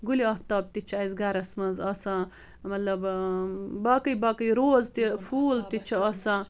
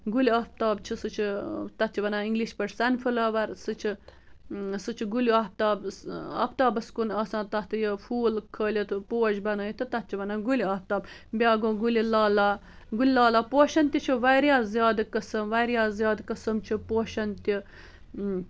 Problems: background conversations at intervals